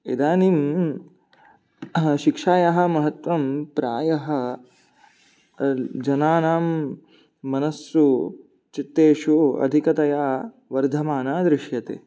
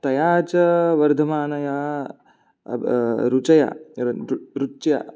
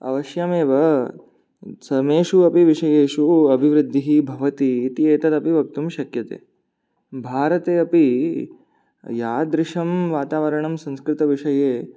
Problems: none marked